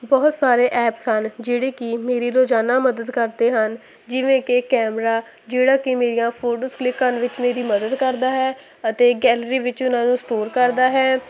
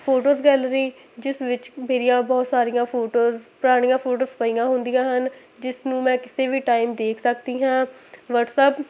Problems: constant background noise